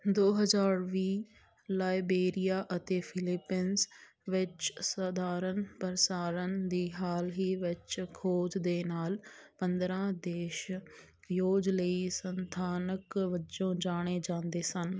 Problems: none marked